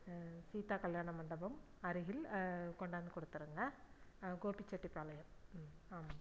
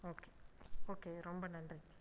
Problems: low volume